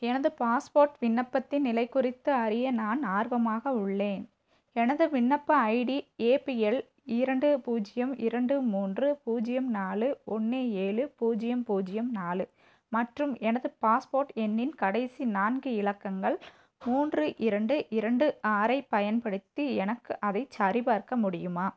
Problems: none marked